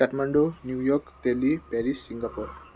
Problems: none marked